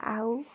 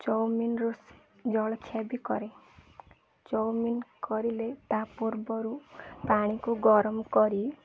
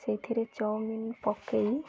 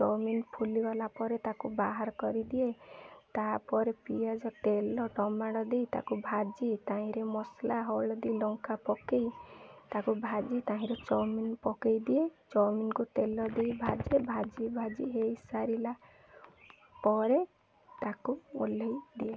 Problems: constant background noise, continuous background conversations